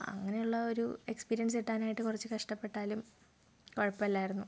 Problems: low volume